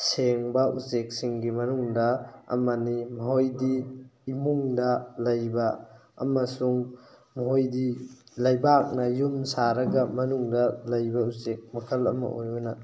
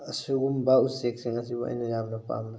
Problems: none marked